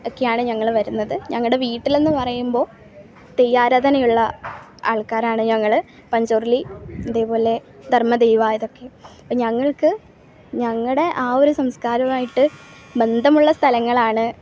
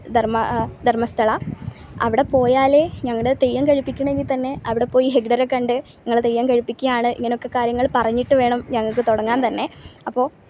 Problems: background sounds at intervals